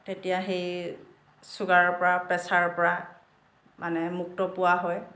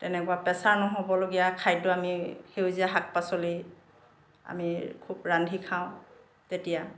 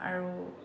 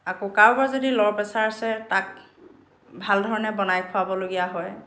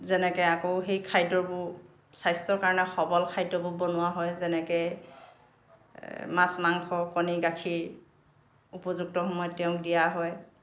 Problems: background sounds at intervals